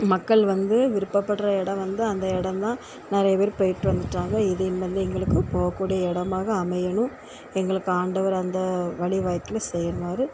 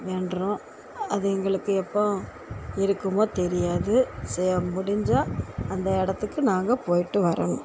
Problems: constant background noise